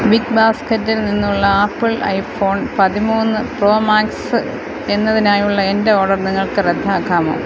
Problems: constant background noise